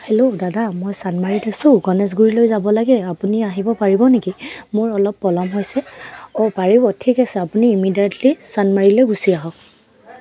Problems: none marked